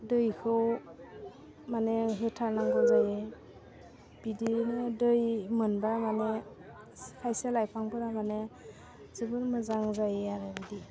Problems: low volume